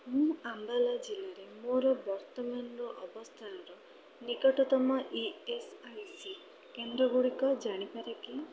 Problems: none marked